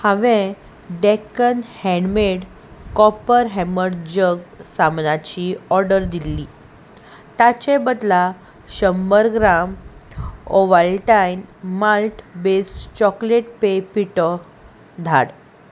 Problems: constant background noise